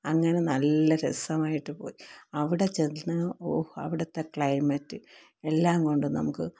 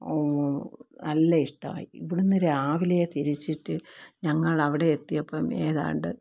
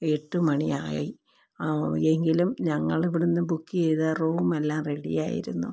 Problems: low volume